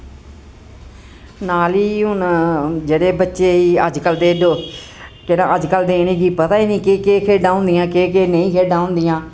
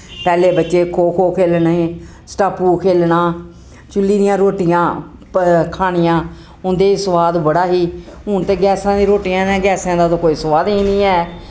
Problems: none marked